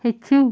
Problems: constant background noise